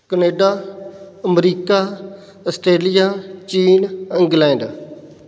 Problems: none marked